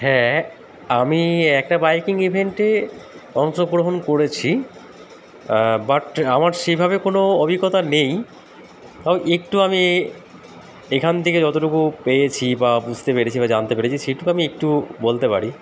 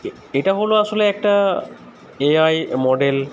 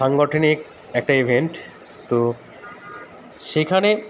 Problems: none marked